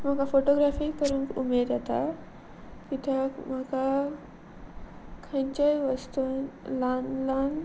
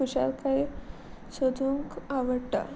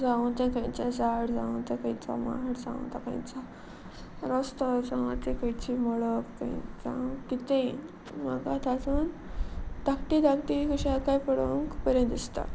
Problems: none marked